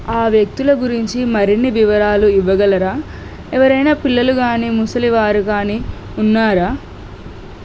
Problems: constant background noise